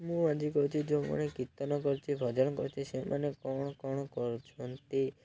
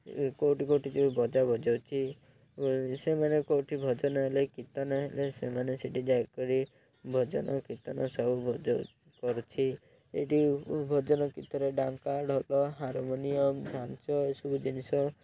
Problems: low volume